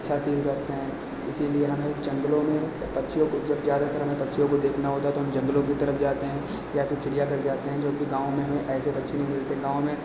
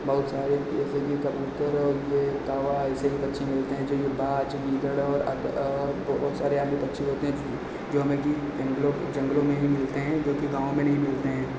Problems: constant background noise, echo